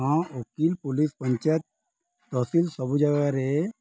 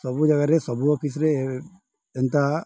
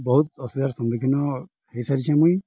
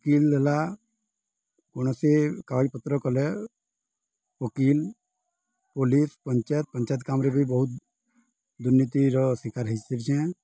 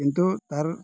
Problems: none marked